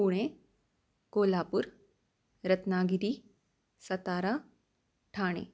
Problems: constant background noise